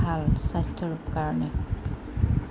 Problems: constant background noise